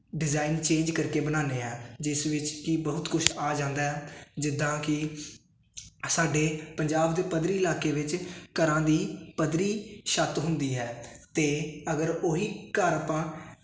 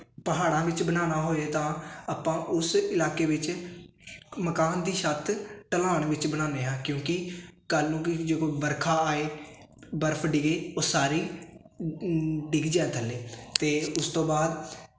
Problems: constant background noise